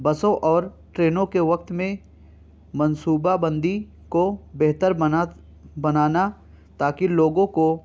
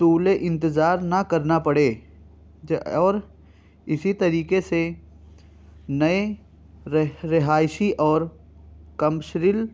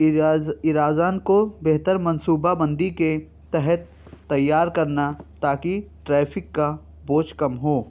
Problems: none marked